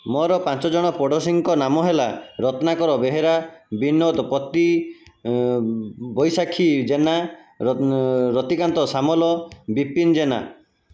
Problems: constant background noise, continuous background conversations